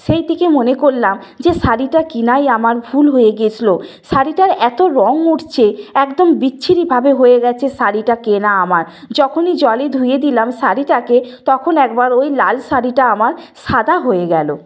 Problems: none marked